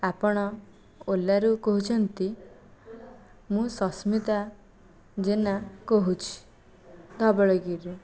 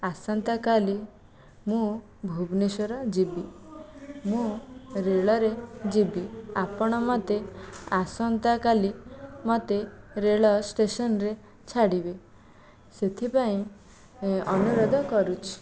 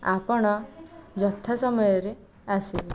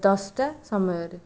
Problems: none marked